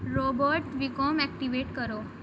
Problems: constant background noise